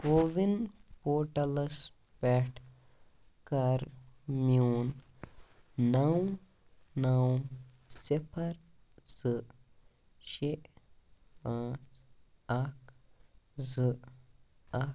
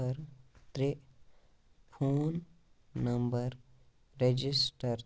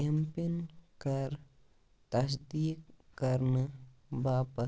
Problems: none marked